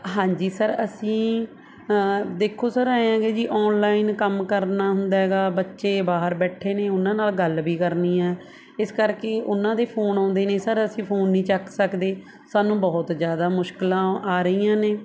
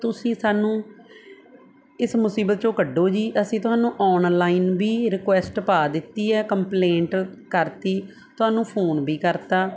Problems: none marked